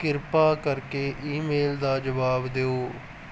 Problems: none marked